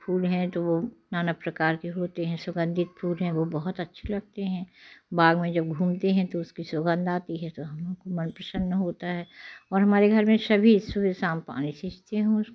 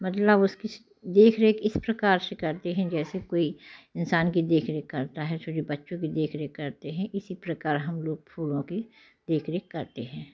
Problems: constant background noise